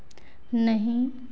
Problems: none marked